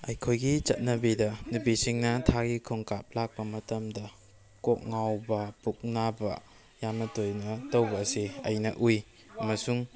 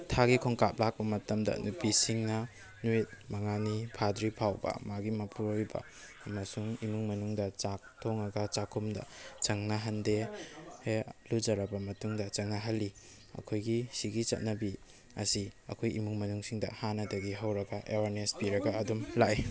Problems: background conversations at intervals